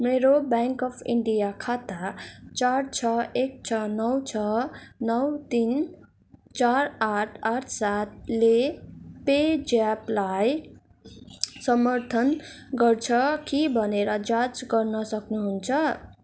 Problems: constant background noise